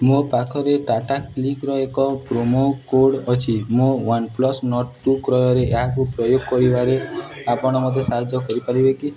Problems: background sounds at intervals, background conversations at intervals